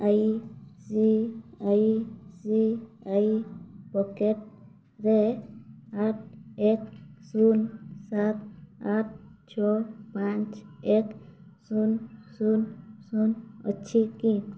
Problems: none marked